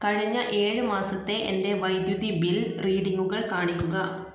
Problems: background sounds at intervals